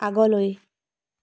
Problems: none marked